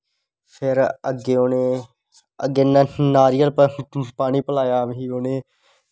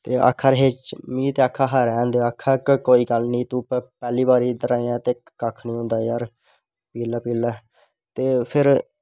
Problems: none marked